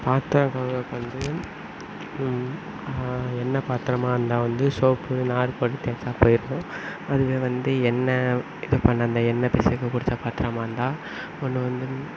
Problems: constant background noise